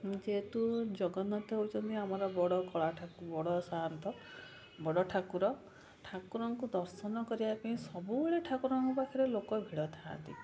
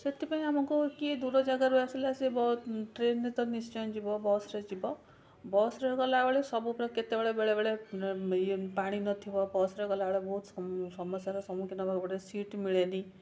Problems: none marked